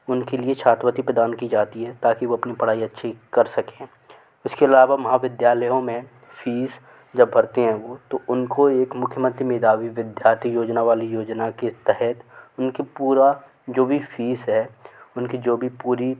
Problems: constant background noise